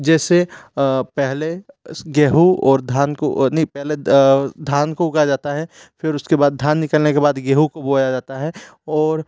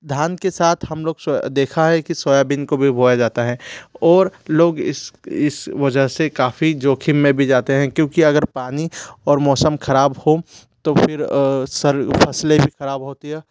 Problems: constant background noise